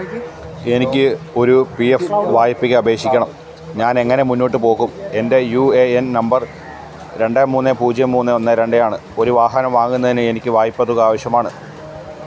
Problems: constant background noise